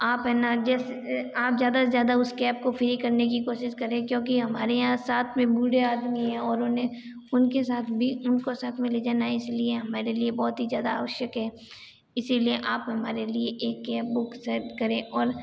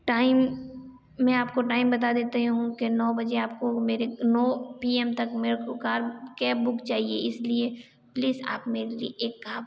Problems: constant background noise